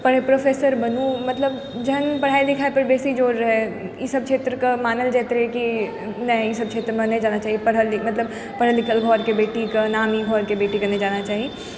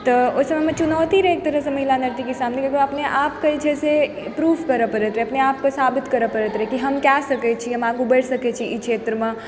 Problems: background sounds at intervals, background conversations at intervals